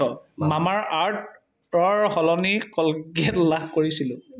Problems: background sounds at intervals